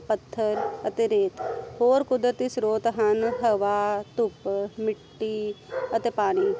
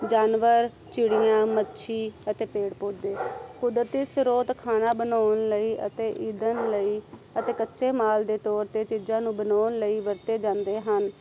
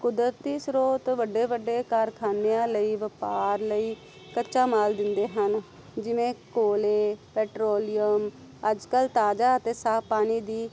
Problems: constant background noise